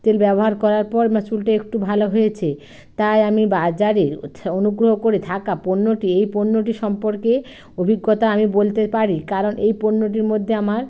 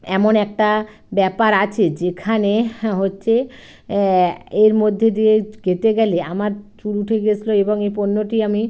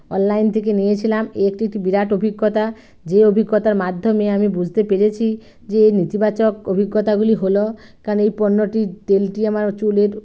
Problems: background sounds at intervals